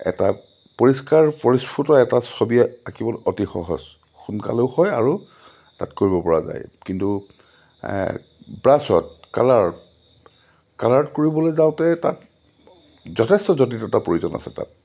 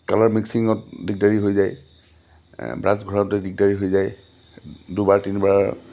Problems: low volume